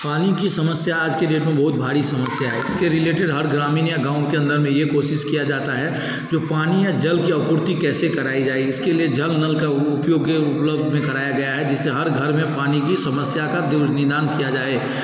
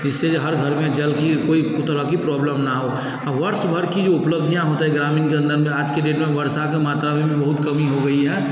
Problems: background sounds at intervals